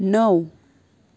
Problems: none marked